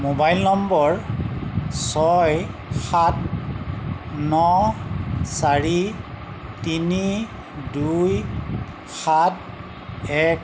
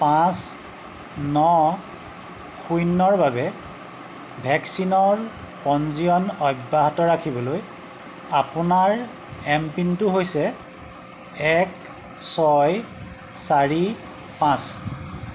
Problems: constant background noise